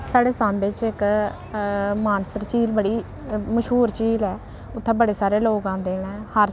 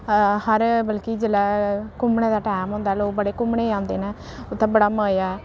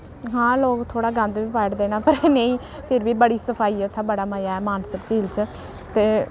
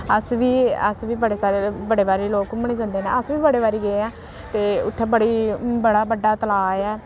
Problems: constant background noise